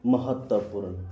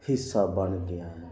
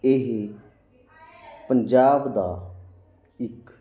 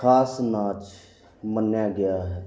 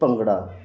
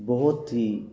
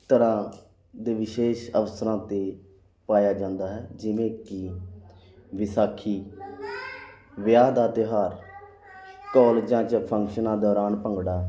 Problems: constant background noise